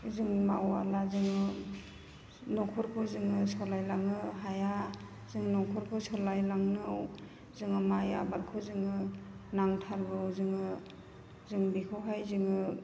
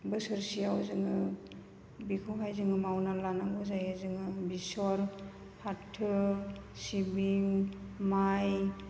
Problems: constant background noise